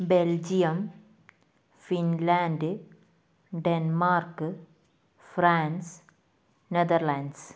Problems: none marked